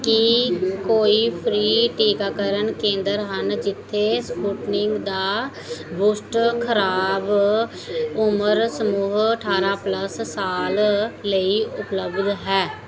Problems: continuous background conversations